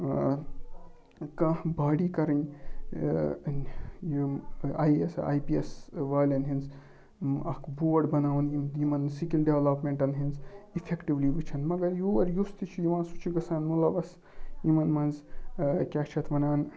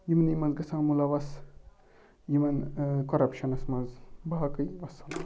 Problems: low volume